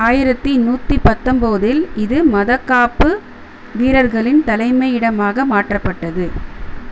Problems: constant background noise